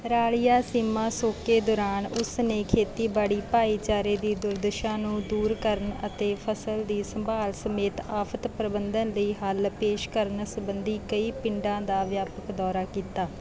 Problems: background sounds at intervals